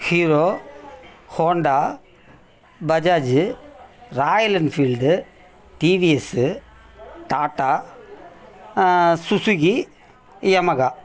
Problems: background conversations at intervals